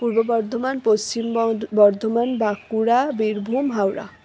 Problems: none marked